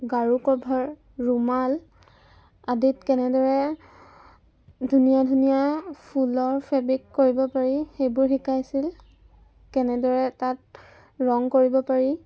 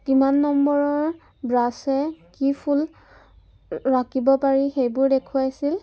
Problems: background sounds at intervals